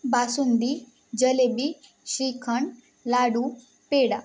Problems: background sounds at intervals